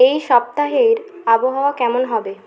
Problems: constant background noise, background conversations at intervals